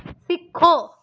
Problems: none marked